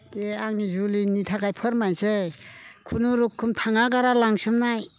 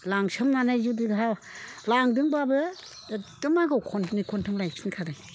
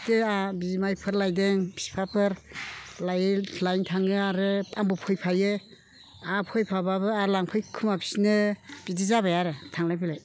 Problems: constant background noise